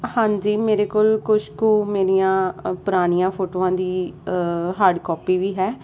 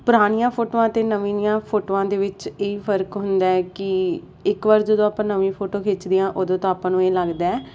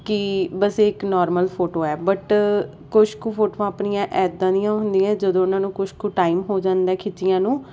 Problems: none marked